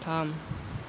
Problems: constant background noise